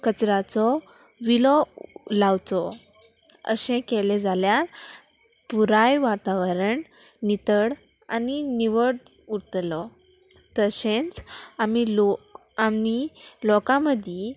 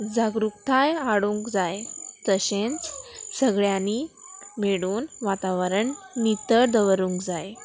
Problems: constant background noise